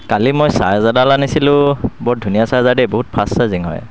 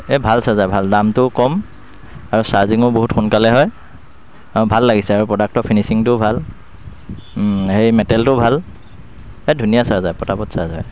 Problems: constant background noise